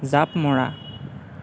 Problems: background sounds at intervals